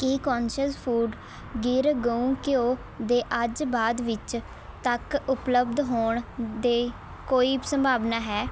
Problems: constant background noise